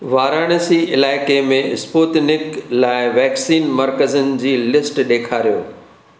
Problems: none marked